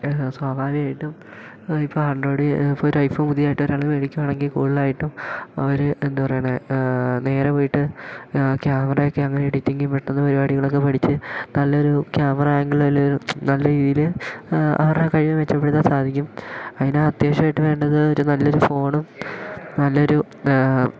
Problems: none marked